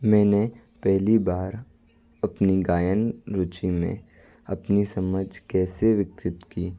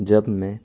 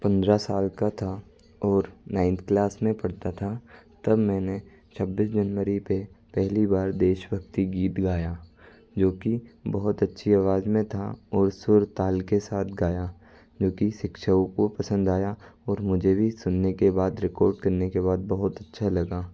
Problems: constant background noise